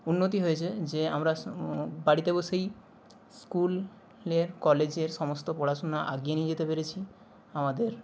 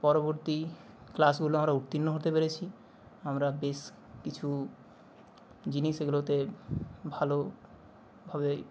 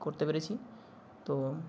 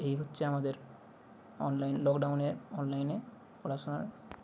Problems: background sounds at intervals